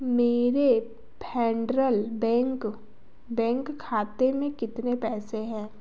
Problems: background sounds at intervals